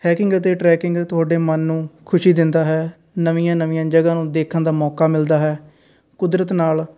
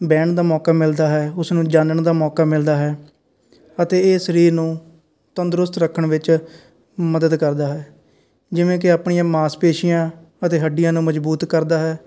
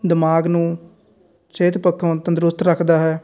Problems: constant background noise